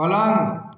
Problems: none marked